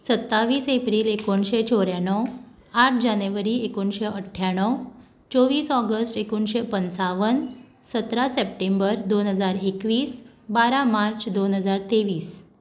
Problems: background sounds at intervals